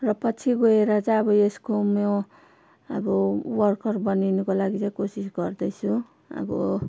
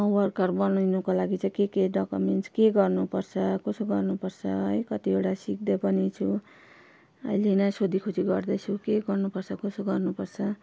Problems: constant background noise